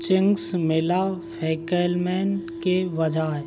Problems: constant background noise